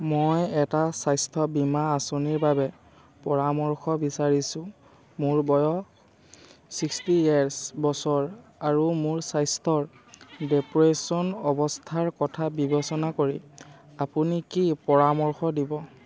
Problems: constant background noise